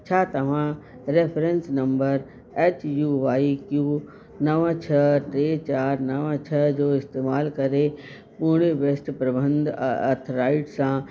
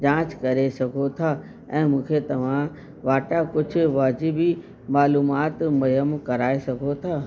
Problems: constant background noise